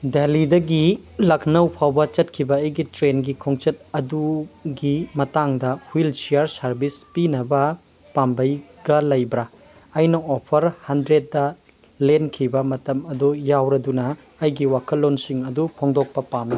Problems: background sounds at intervals